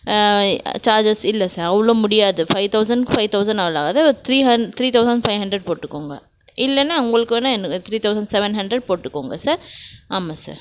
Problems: none marked